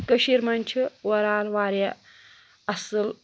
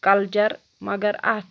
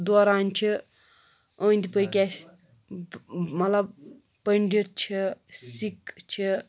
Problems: none marked